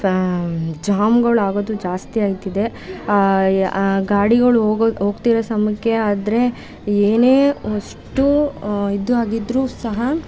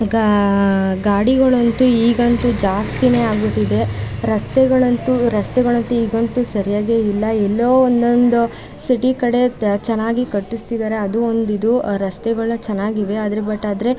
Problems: background sounds at intervals